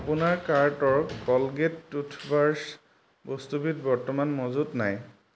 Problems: none marked